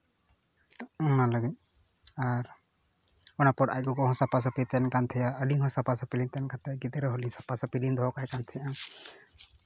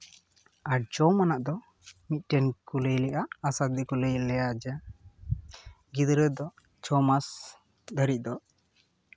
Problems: none marked